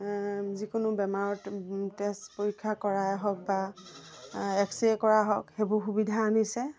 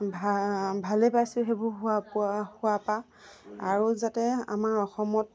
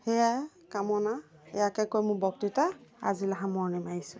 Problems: none marked